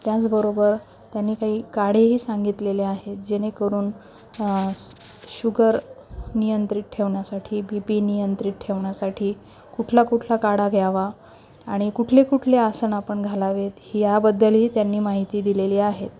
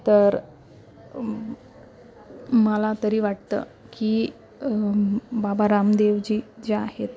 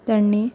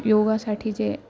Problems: constant background noise, continuous background conversations, low volume